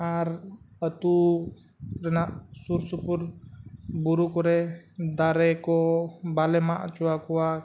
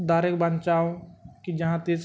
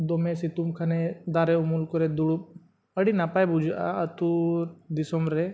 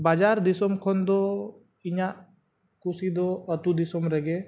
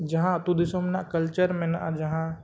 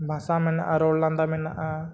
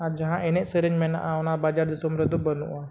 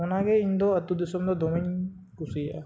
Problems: none marked